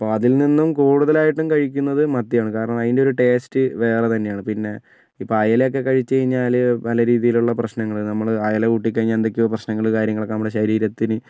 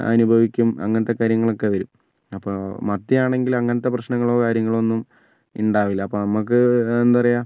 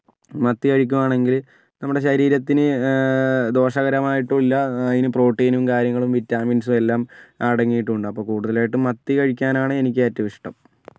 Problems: none marked